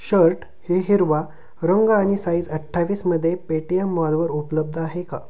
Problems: background sounds at intervals